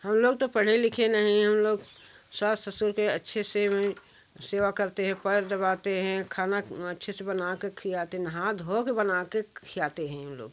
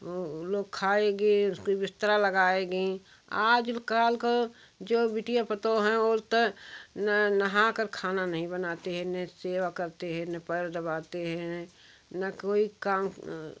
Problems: background sounds at intervals